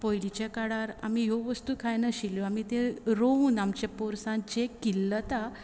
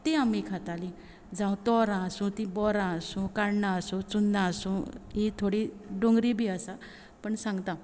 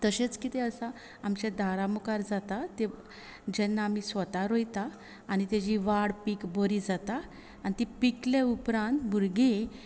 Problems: constant background noise